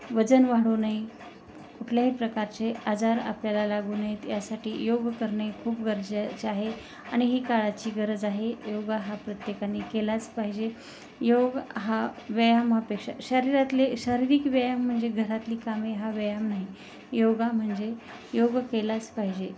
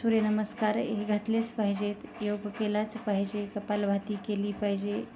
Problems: constant background noise